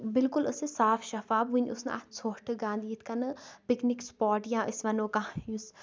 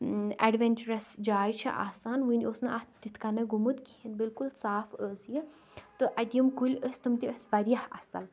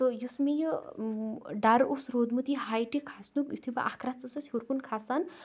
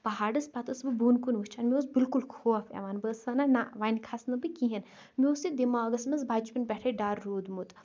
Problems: none marked